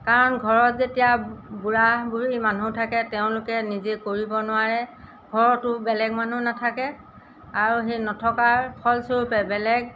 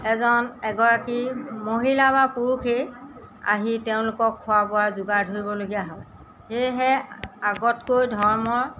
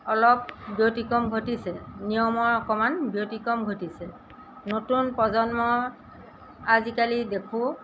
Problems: background sounds at intervals